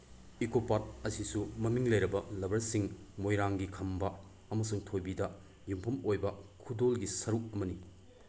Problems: background sounds at intervals